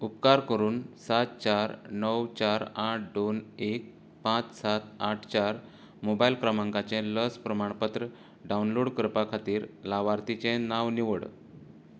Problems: background sounds at intervals, low volume